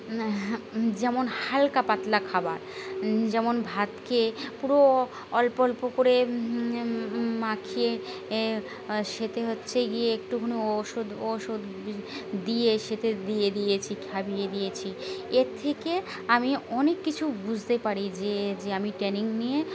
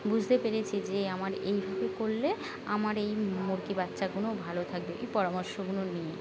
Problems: constant background noise